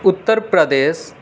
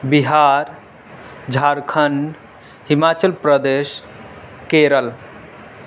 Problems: constant background noise